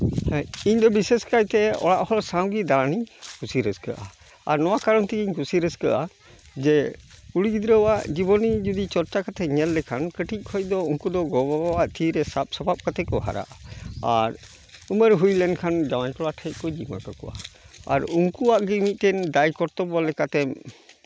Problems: background sounds at intervals, background conversations at intervals